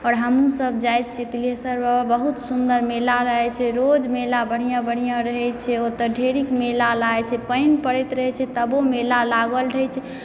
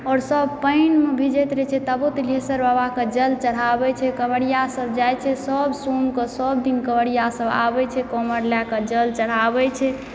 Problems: background sounds at intervals